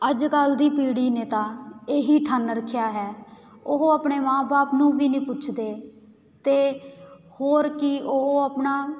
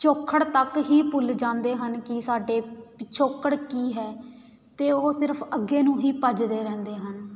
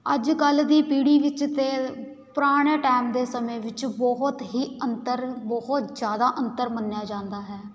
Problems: constant background noise